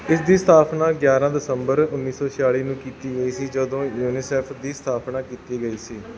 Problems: background sounds at intervals